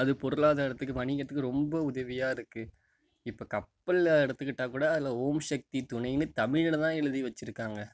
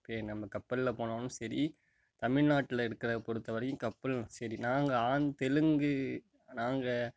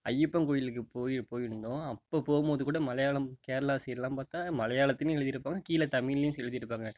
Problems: background sounds at intervals